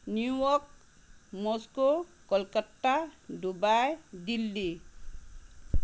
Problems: constant background noise